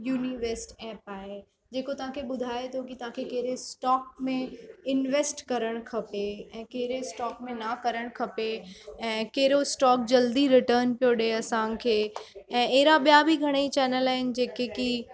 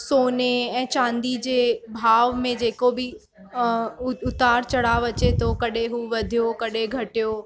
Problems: constant background noise